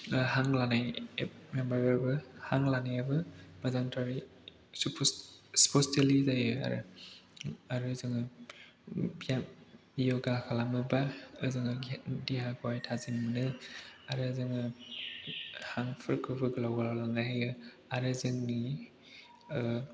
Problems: background conversations at intervals